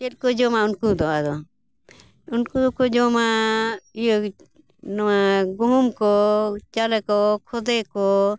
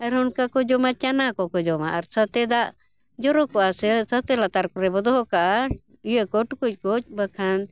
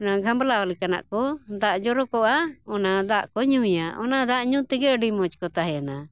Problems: none marked